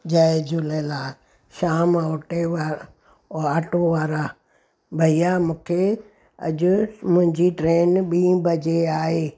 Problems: background sounds at intervals